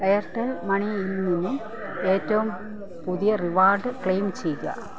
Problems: constant background noise, low volume